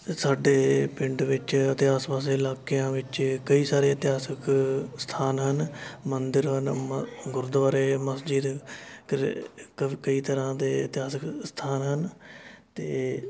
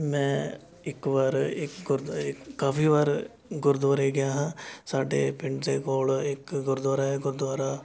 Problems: constant background noise, continuous background conversations